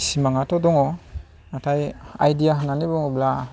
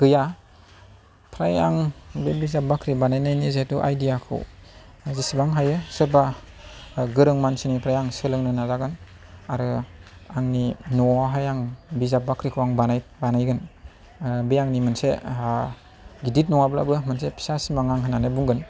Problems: none marked